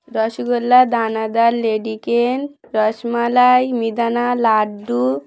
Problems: background sounds at intervals, background conversations at intervals